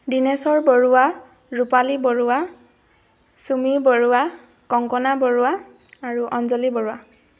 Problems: constant background noise